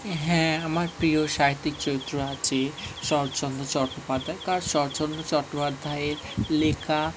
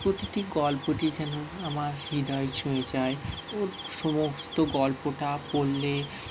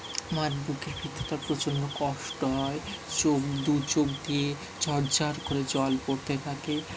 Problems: none marked